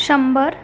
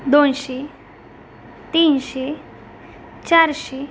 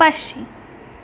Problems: background sounds at intervals